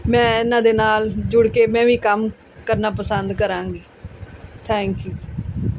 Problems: background sounds at intervals